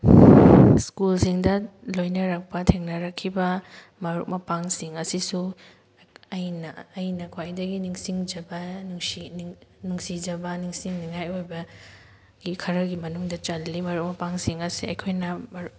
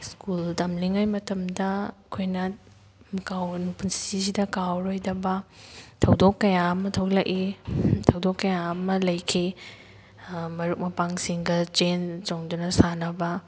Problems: background sounds at intervals